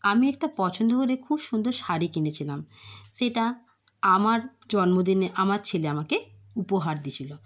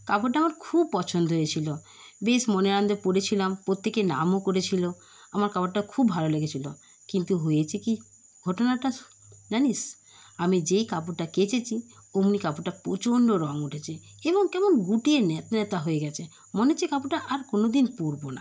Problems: none marked